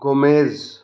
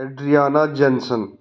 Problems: none marked